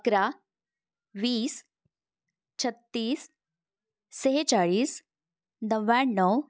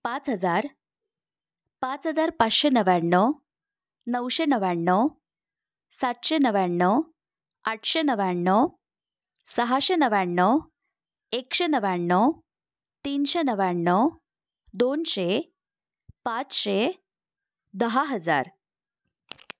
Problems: none marked